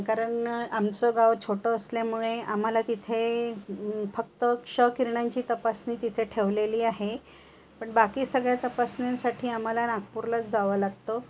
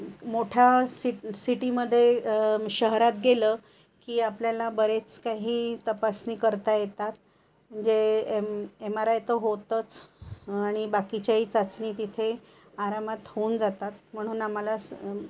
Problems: constant background noise